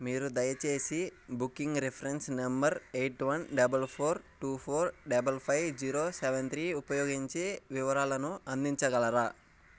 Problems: background sounds at intervals